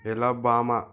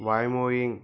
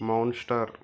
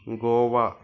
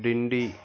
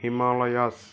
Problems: background sounds at intervals, background conversations at intervals